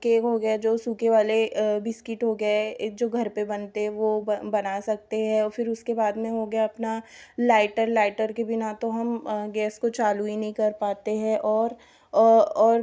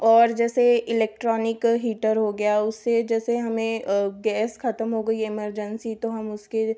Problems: background sounds at intervals